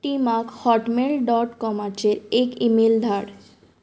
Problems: none marked